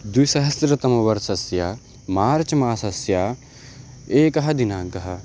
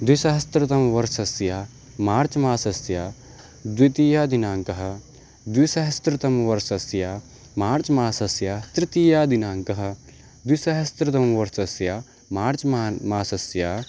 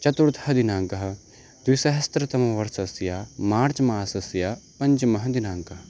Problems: constant background noise